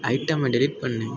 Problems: constant background noise